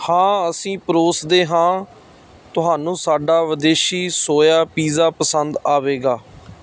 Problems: none marked